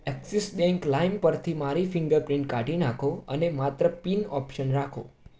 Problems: none marked